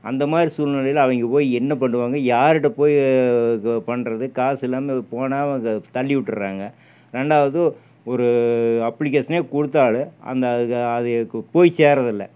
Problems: none marked